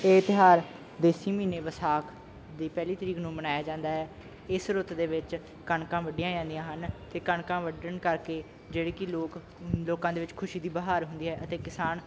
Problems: none marked